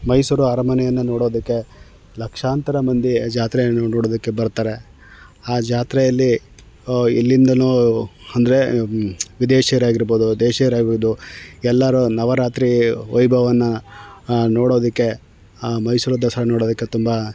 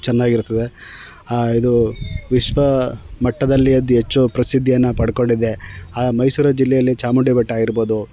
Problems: none marked